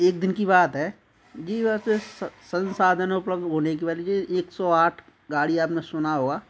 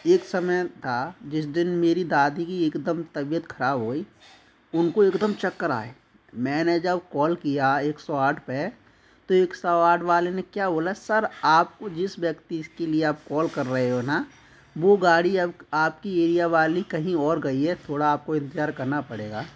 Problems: none marked